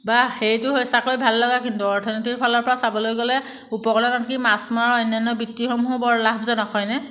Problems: background sounds at intervals